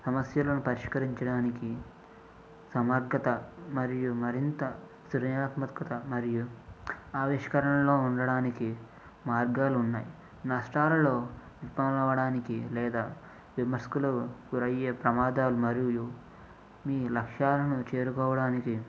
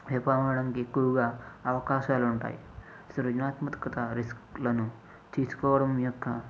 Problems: low volume